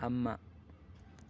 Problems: background sounds at intervals